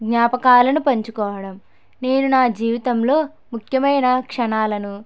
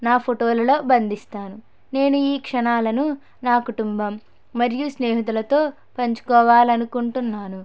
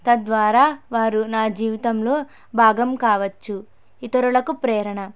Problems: none marked